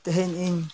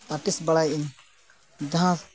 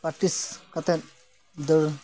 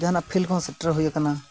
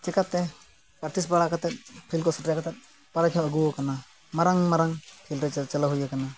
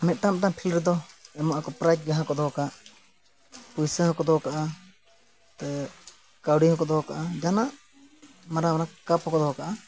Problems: background sounds at intervals